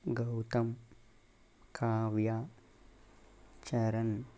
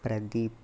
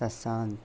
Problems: constant background noise, low volume